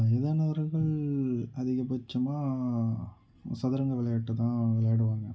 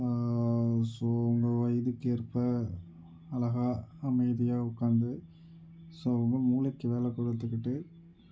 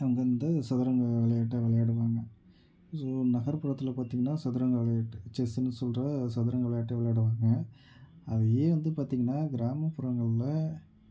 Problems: none marked